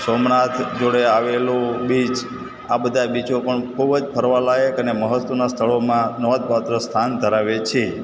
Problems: constant background noise, echo